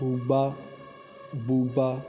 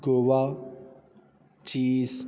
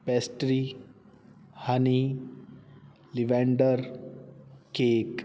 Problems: constant background noise